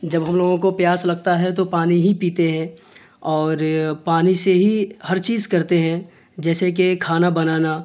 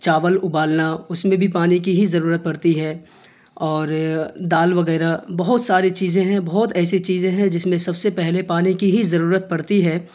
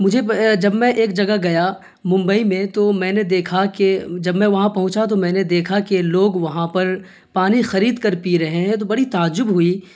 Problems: constant background noise